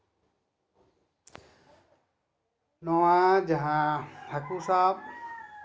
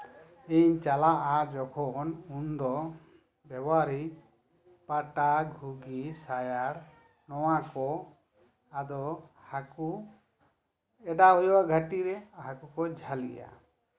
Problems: background sounds at intervals